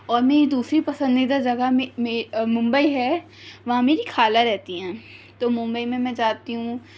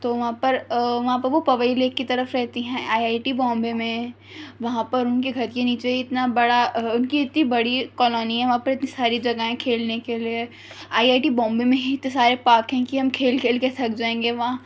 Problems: none marked